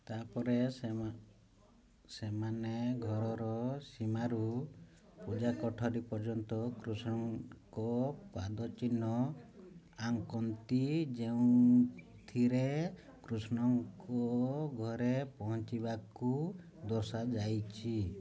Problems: low volume